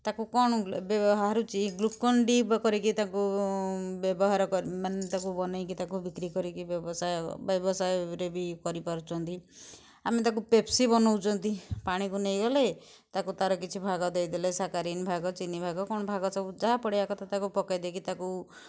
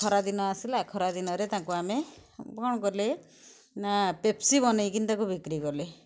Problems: background sounds at intervals